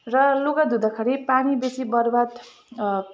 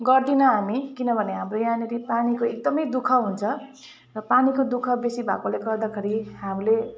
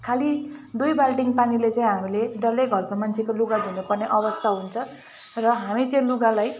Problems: constant background noise, continuous background conversations